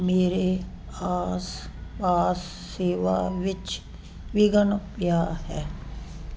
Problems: background conversations at intervals